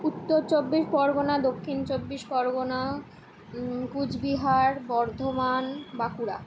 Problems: background sounds at intervals